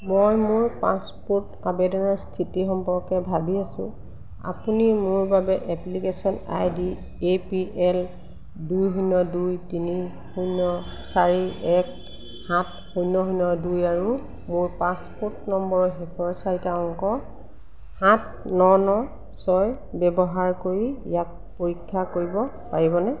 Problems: none marked